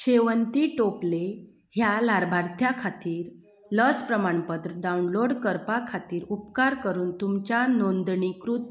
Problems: none marked